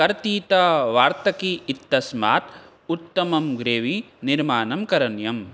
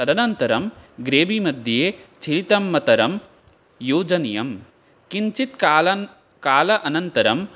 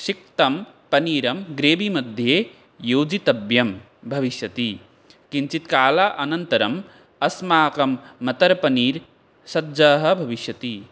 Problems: none marked